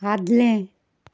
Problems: background sounds at intervals